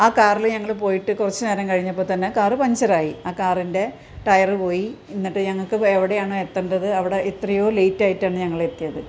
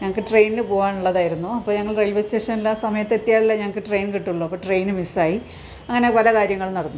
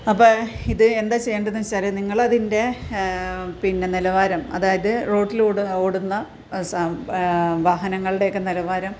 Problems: background sounds at intervals